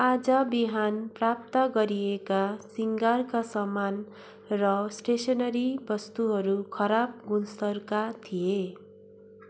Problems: constant background noise